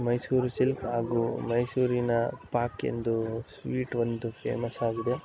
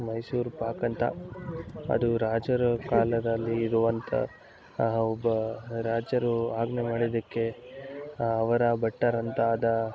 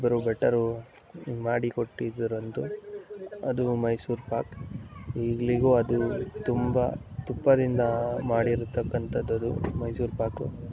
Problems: none marked